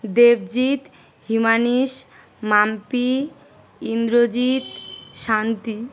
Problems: none marked